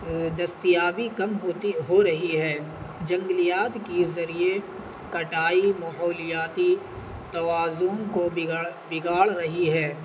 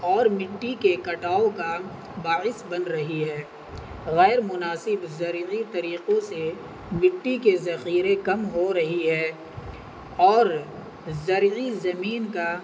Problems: constant background noise